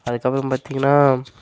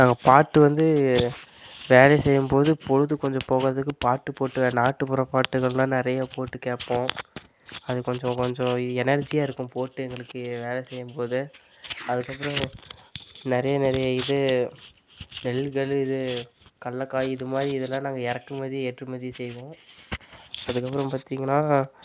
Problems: constant background noise